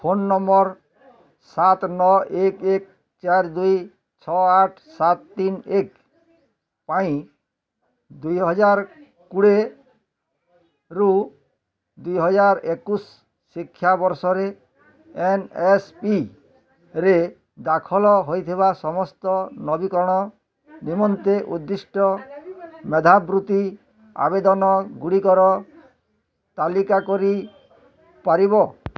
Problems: constant background noise, continuous background conversations